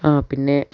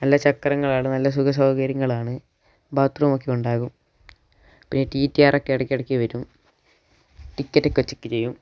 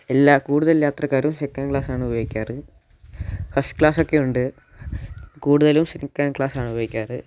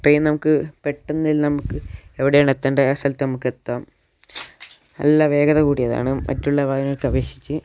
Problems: background sounds at intervals